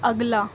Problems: background sounds at intervals